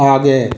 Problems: constant background noise